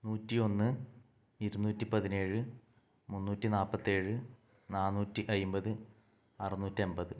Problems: low volume